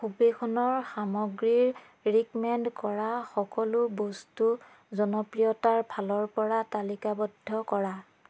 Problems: background sounds at intervals